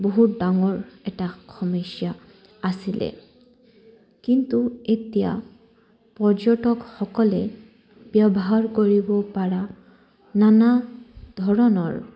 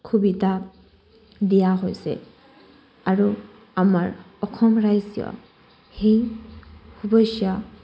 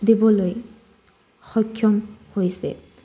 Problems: none marked